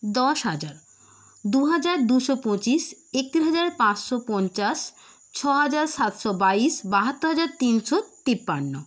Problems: constant background noise